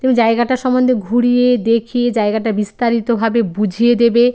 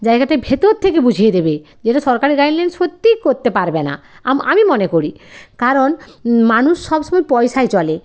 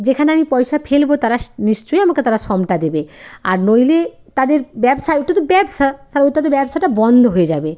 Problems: background sounds at intervals